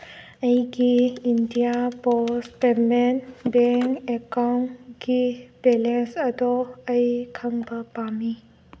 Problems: none marked